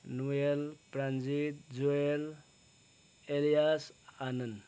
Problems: none marked